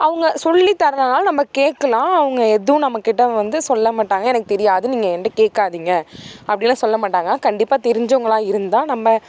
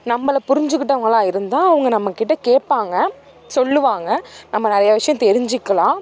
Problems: background sounds at intervals